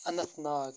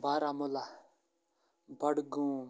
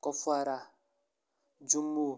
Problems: constant background noise